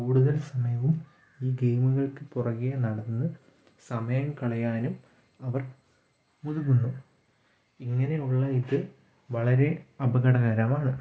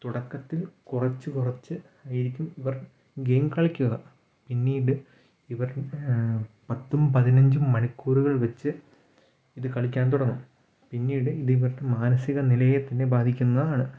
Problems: none marked